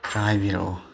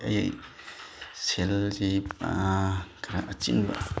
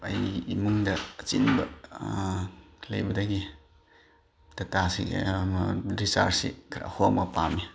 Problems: background sounds at intervals